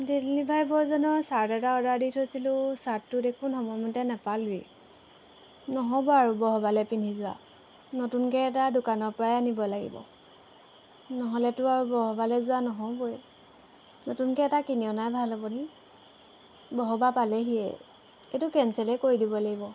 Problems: constant background noise